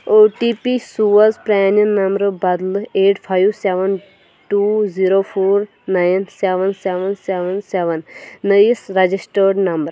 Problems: background sounds at intervals